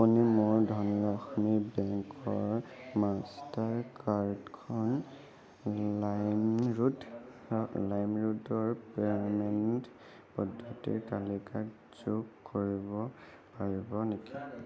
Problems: none marked